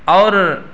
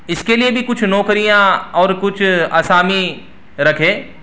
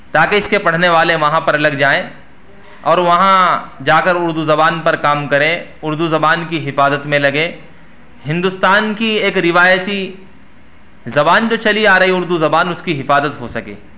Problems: background sounds at intervals